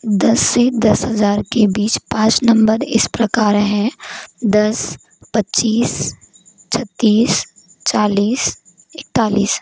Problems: constant background noise